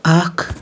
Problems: background sounds at intervals